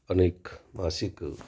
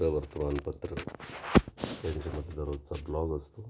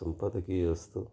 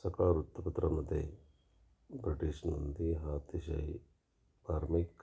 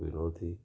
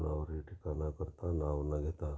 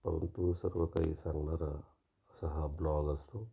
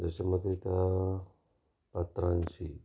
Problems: constant background noise